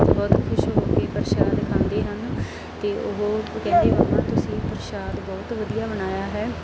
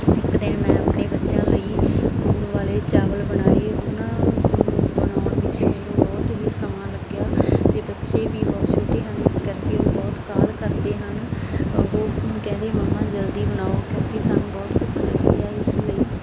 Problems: constant background noise